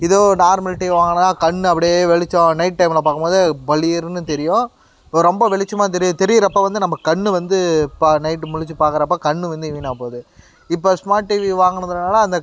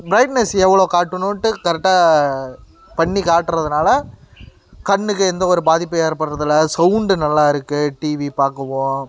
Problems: constant background noise